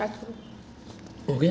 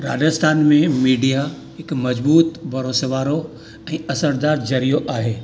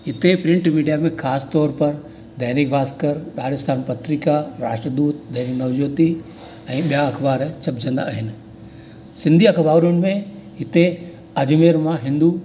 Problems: constant background noise